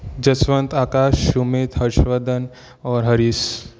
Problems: none marked